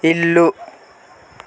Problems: constant background noise